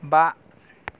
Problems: low volume